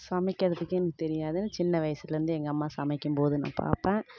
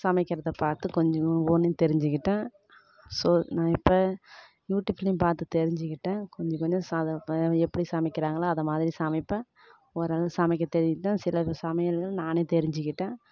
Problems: none marked